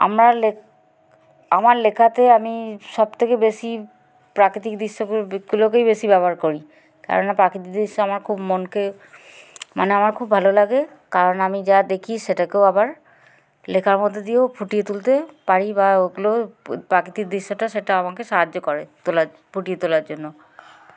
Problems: background sounds at intervals